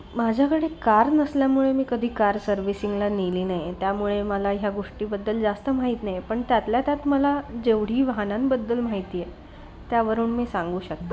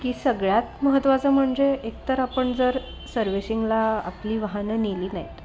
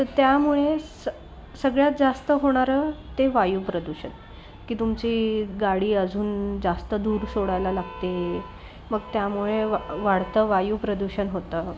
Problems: constant background noise, background conversations at intervals, low volume